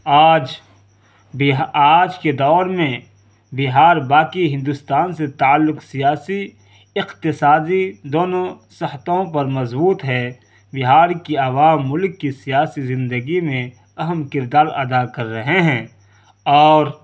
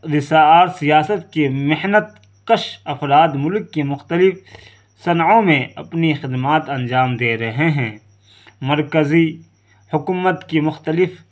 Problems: constant background noise